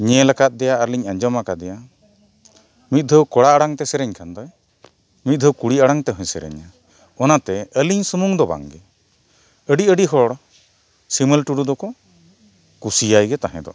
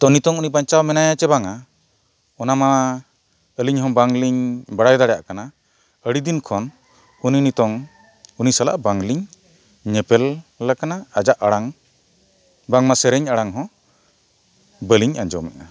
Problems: none marked